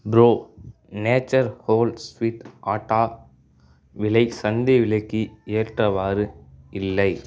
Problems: none marked